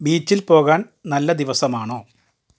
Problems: none marked